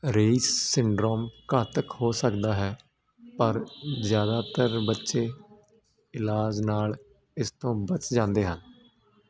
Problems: constant background noise